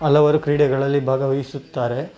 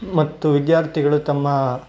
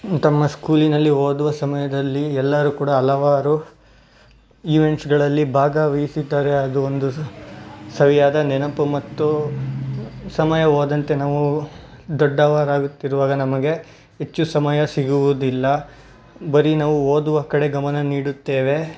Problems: none marked